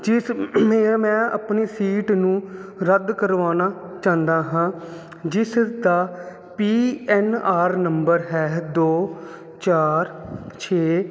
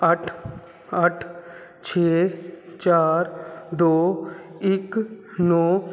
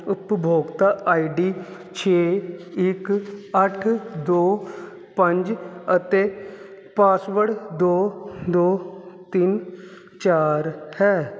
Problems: constant background noise